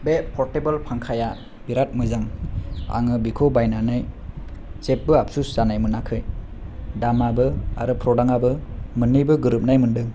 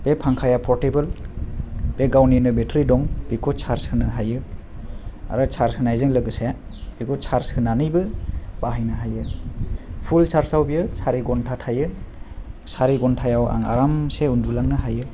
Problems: low volume